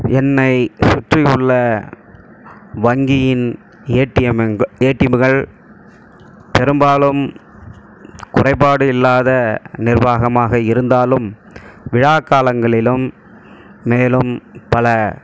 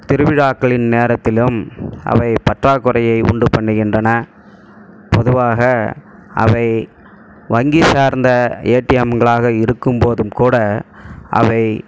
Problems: background sounds at intervals